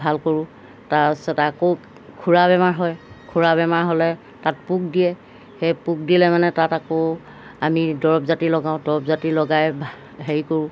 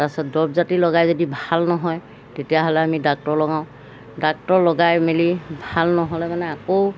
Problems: background sounds at intervals